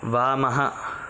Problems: constant background noise